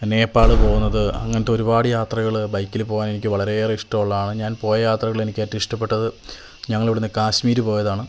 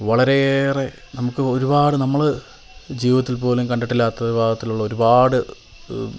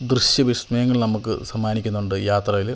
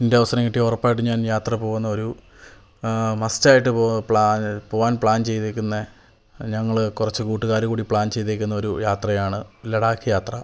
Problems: background sounds at intervals